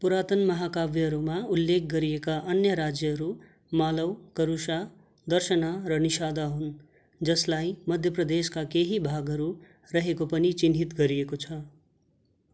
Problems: background sounds at intervals